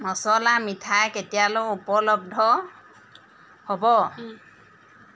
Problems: constant background noise, background conversations at intervals